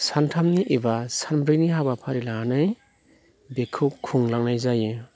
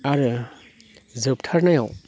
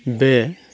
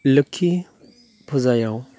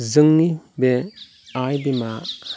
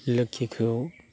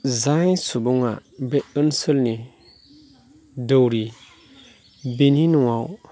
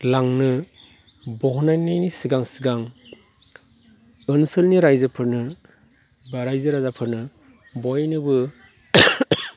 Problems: constant background noise